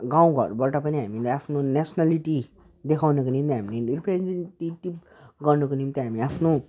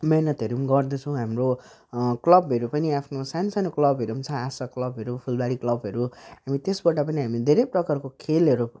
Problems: none marked